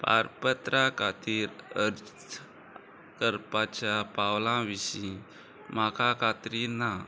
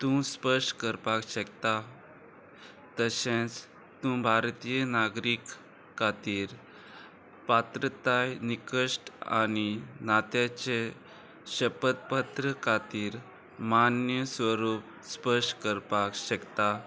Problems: constant background noise